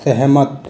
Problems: constant background noise, continuous background conversations